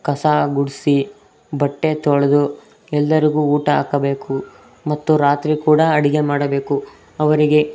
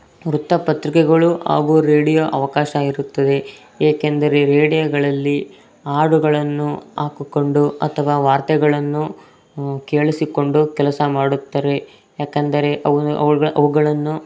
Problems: background sounds at intervals